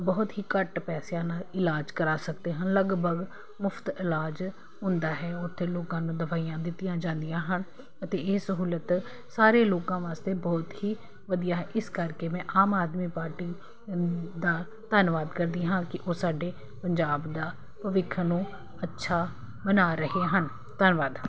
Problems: none marked